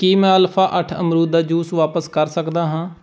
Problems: background sounds at intervals